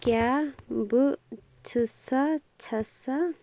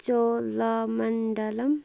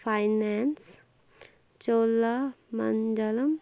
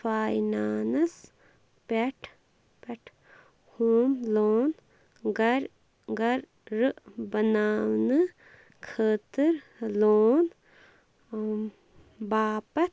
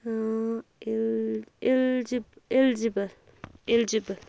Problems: constant background noise